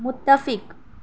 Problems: none marked